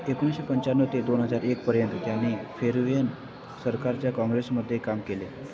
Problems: constant background noise